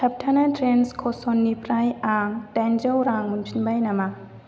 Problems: constant background noise